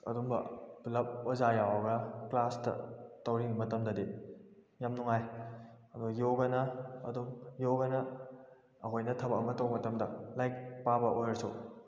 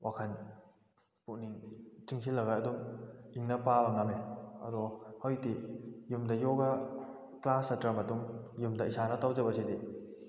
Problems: echo